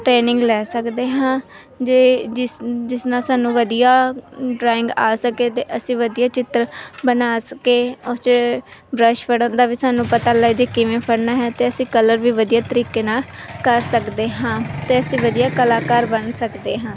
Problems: none marked